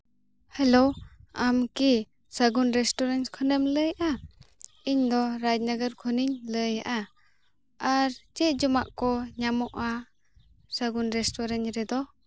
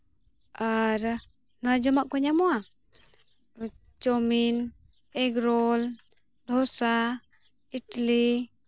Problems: constant background noise